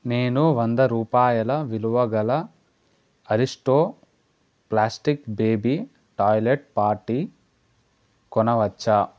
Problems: none marked